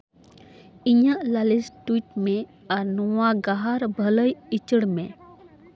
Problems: background conversations at intervals